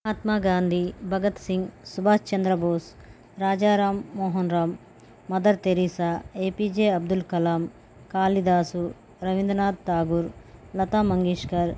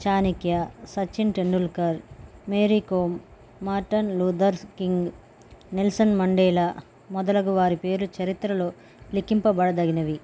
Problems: none marked